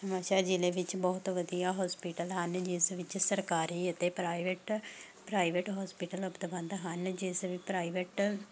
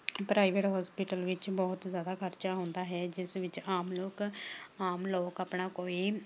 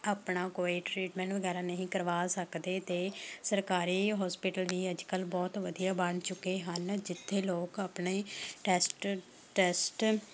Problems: none marked